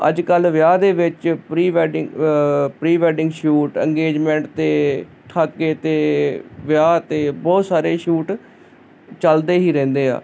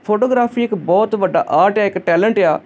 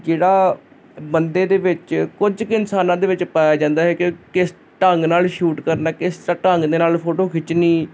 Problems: constant background noise